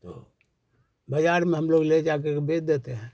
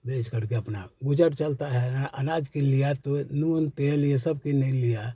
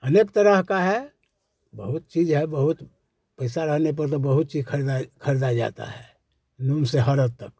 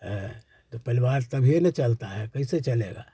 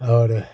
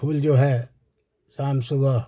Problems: none marked